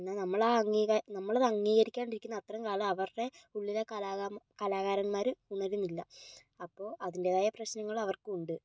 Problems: low volume